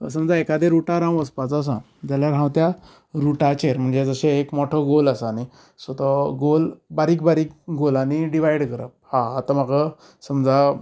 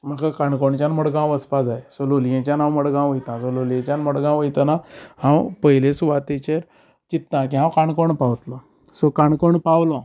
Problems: none marked